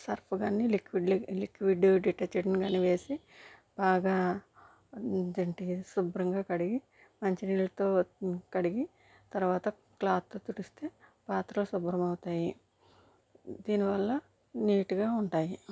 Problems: none marked